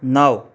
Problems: none marked